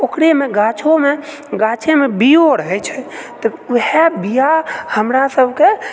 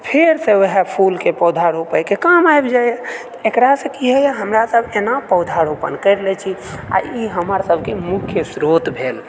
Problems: none marked